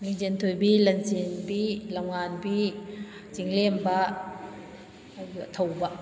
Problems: background conversations at intervals